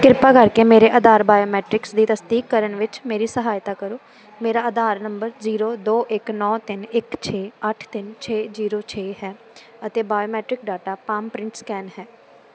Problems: constant background noise